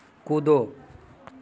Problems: constant background noise